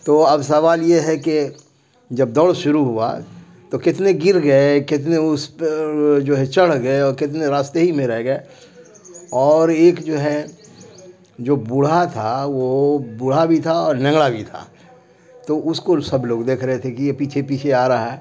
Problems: constant background noise